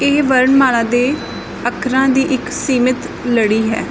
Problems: constant background noise